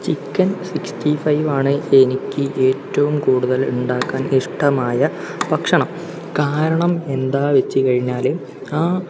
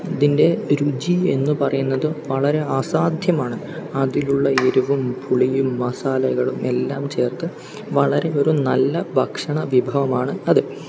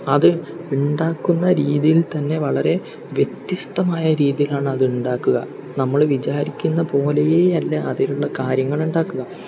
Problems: background sounds at intervals